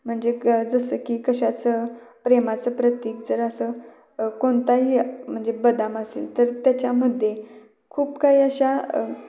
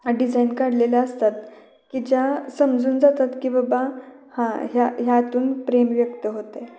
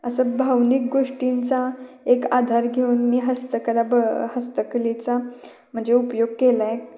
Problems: continuous background conversations, echo